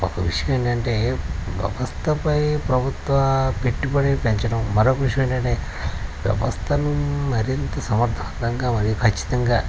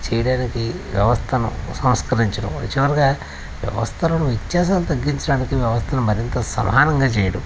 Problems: constant background noise